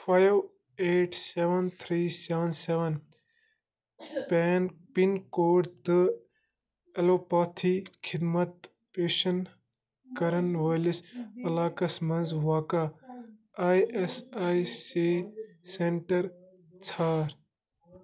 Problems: background conversations at intervals